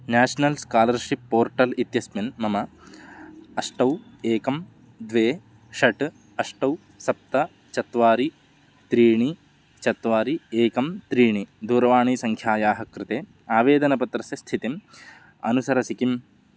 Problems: none marked